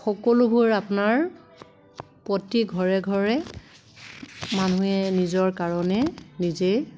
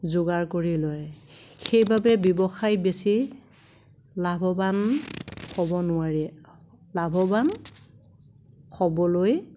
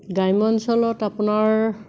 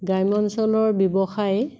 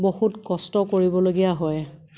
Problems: constant background noise